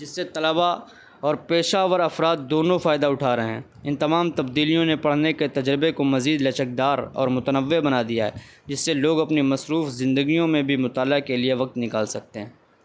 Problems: constant background noise